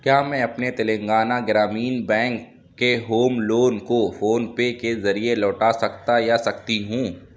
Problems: none marked